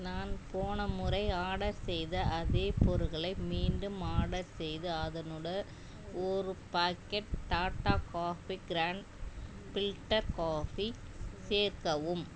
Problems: low volume